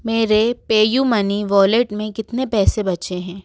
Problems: background sounds at intervals